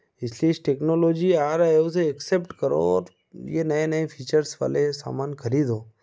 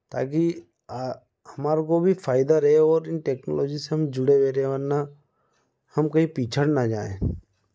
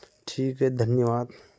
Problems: none marked